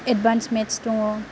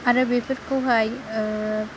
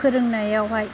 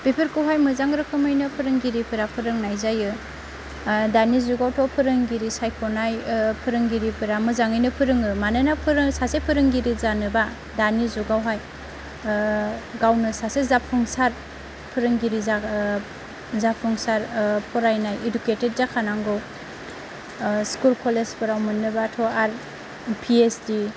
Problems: constant background noise, low volume